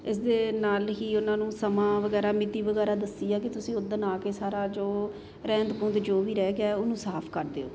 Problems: constant background noise